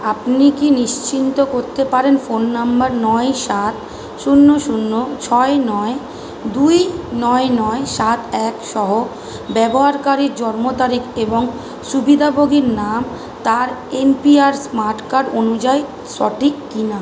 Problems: constant background noise